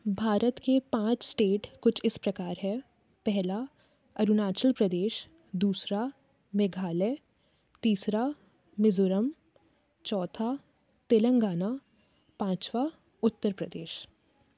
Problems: none marked